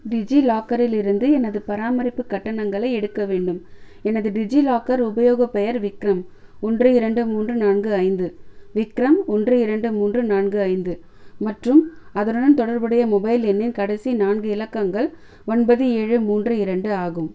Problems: none marked